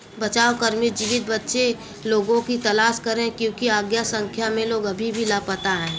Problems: none marked